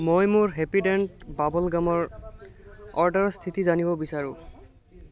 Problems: constant background noise